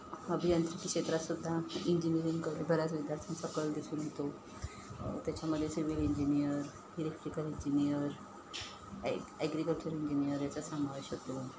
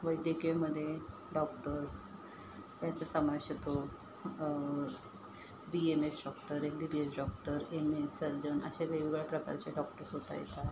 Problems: constant background noise